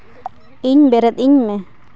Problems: none marked